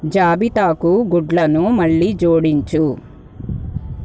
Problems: none marked